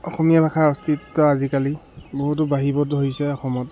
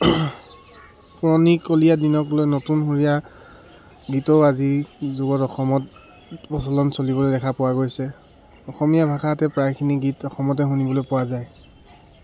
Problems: background sounds at intervals